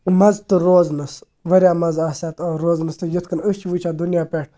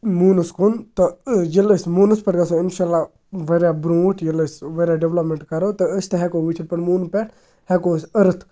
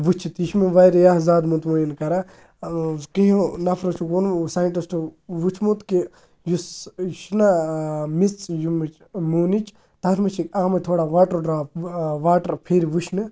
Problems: background sounds at intervals